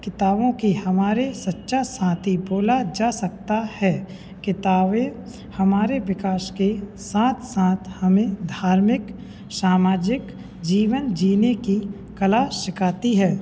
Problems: constant background noise, background conversations at intervals